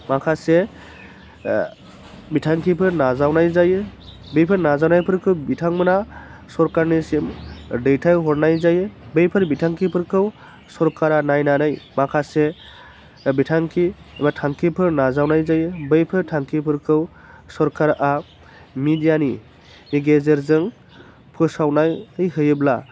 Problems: constant background noise